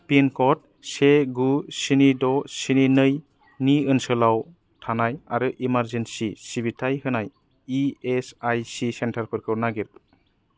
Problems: none marked